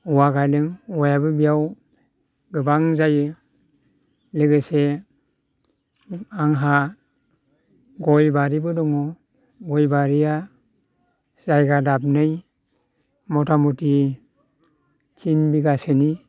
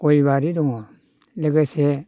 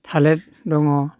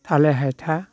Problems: none marked